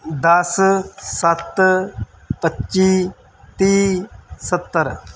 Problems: none marked